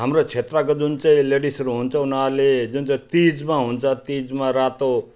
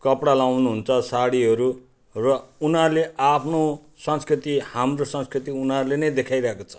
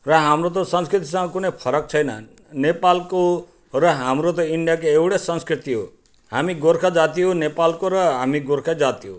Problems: none marked